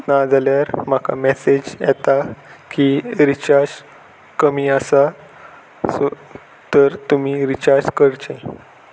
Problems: none marked